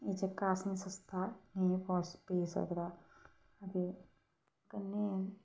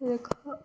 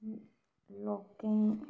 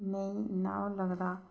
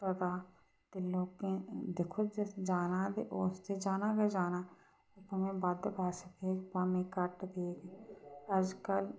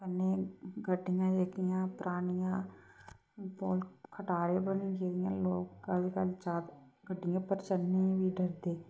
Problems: constant background noise